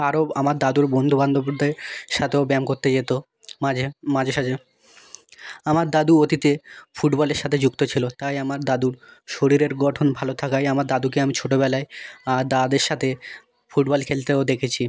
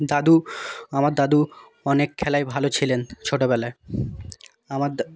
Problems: background conversations at intervals